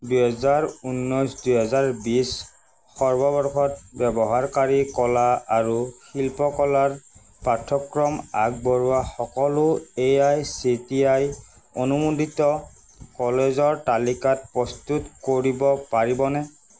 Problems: constant background noise